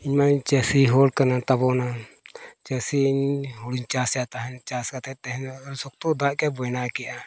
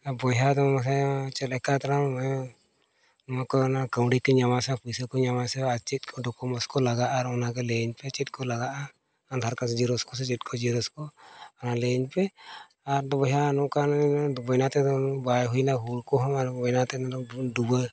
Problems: background sounds at intervals